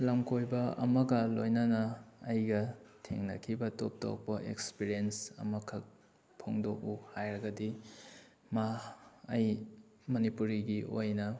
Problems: none marked